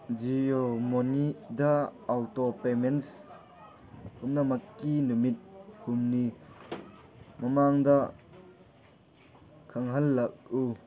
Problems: background sounds at intervals